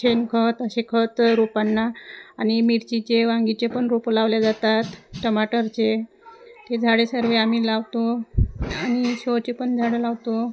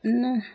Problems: constant background noise, continuous background conversations